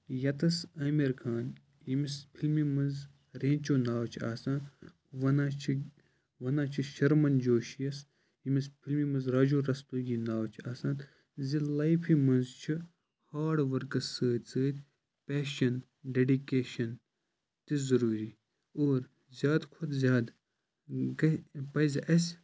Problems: constant background noise